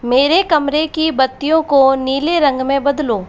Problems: constant background noise